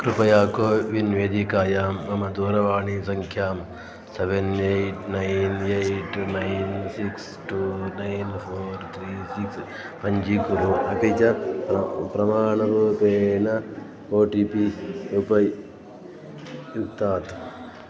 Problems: continuous background conversations